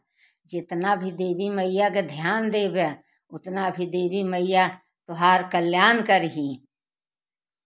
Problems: background sounds at intervals